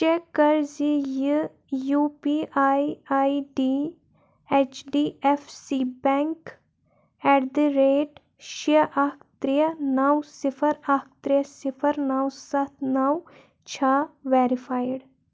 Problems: none marked